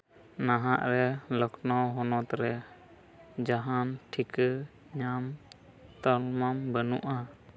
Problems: constant background noise